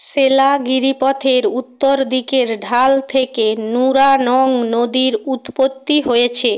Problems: none marked